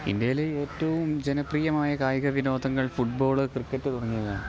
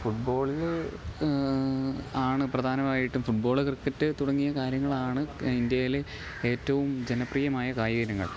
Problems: low volume